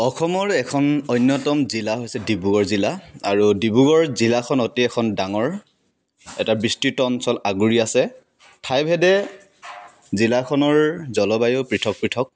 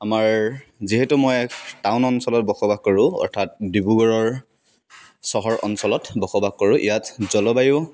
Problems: none marked